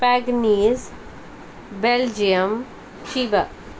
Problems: constant background noise